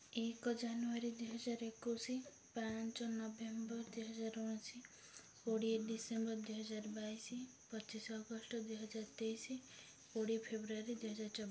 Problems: none marked